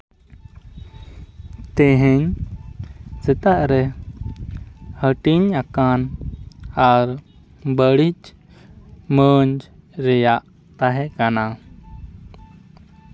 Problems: background sounds at intervals